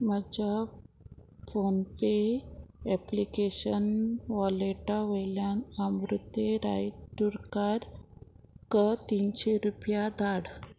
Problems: constant background noise